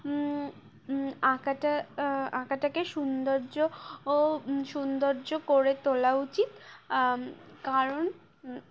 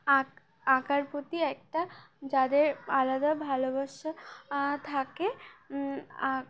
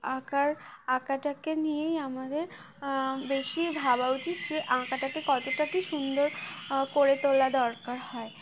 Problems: none marked